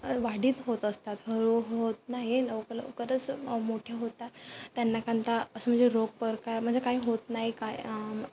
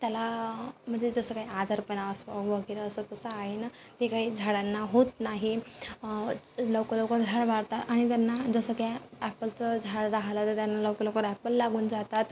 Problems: constant background noise